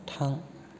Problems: constant background noise